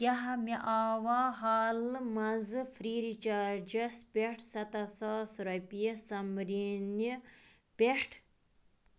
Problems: constant background noise